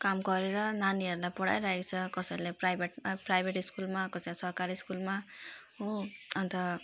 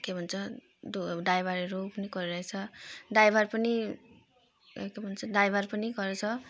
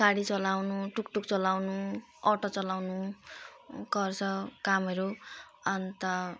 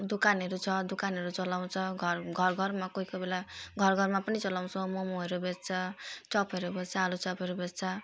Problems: none marked